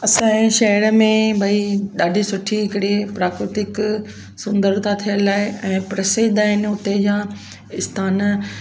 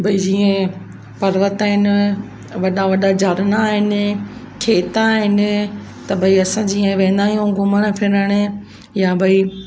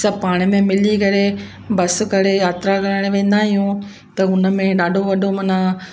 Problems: constant background noise, echo